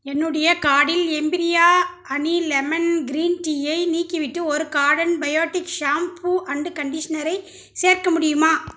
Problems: none marked